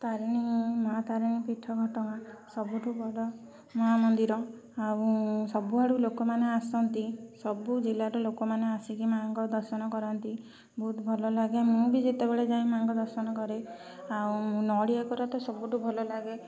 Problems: constant background noise